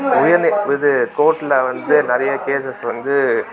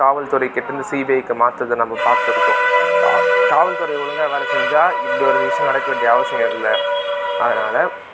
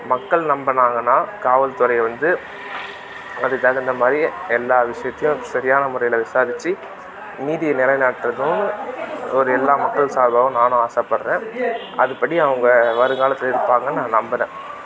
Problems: background sounds at intervals, background conversations at intervals